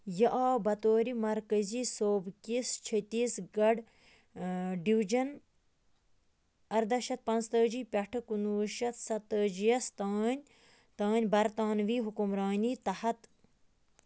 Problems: background sounds at intervals